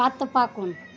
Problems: constant background noise